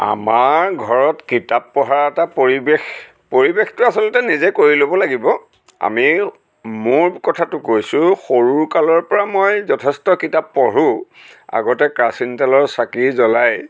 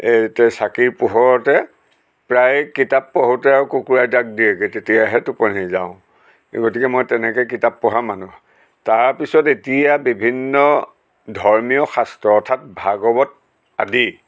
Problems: background sounds at intervals